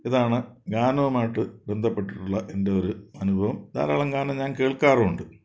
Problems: none marked